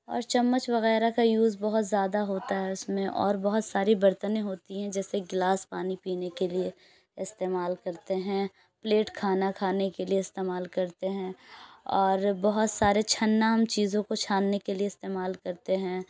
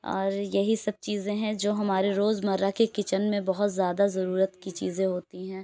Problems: background sounds at intervals, background conversations at intervals